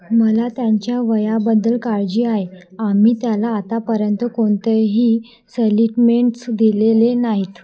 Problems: none marked